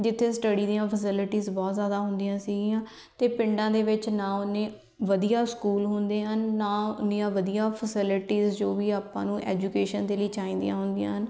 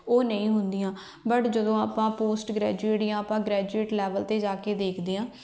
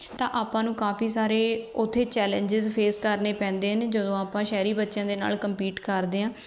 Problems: none marked